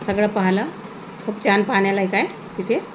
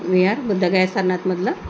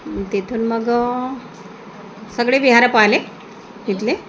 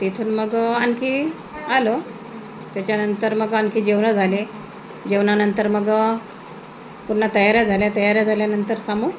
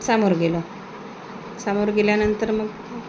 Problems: constant background noise